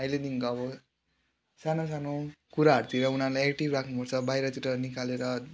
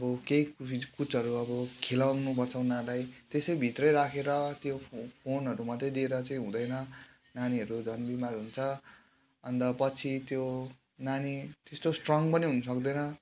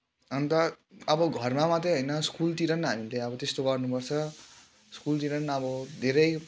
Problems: background sounds at intervals